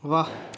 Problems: none marked